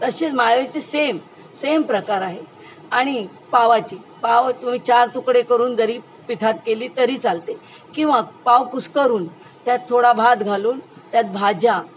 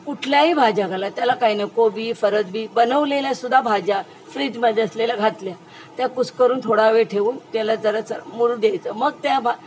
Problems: constant background noise, background conversations at intervals